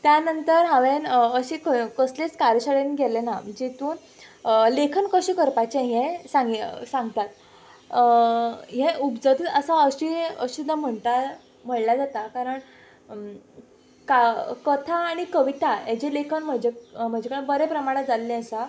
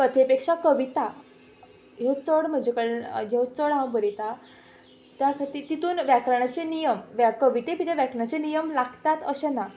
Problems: background sounds at intervals